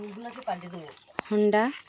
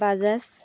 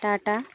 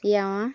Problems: constant background noise, background conversations at intervals